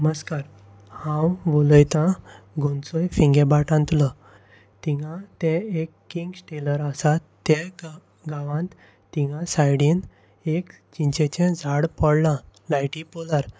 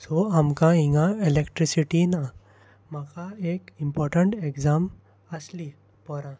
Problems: constant background noise